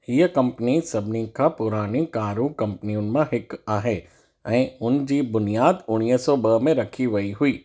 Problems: echo